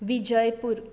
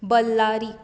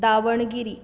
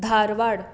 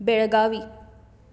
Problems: none marked